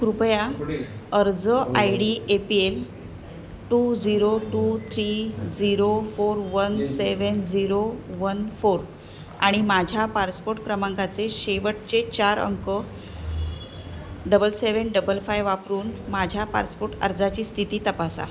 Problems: none marked